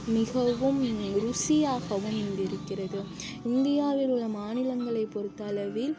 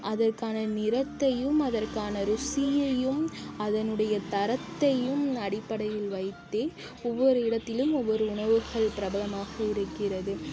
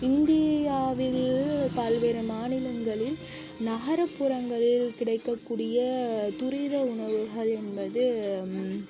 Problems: constant background noise, background conversations at intervals, low volume